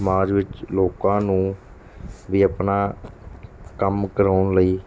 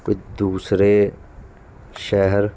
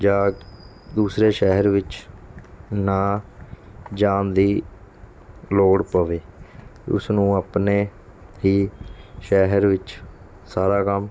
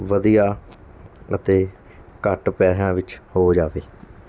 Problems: background sounds at intervals